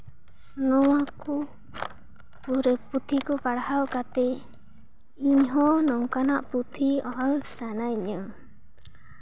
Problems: background sounds at intervals